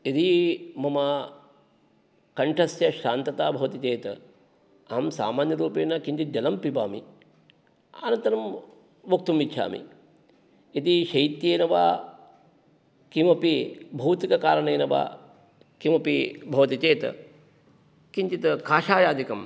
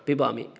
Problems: none marked